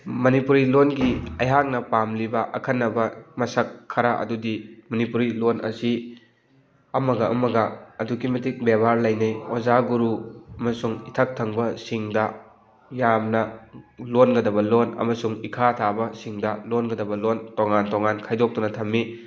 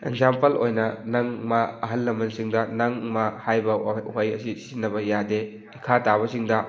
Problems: background sounds at intervals